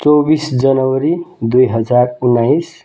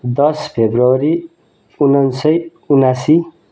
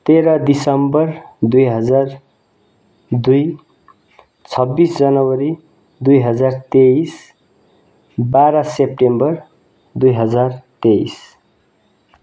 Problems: none marked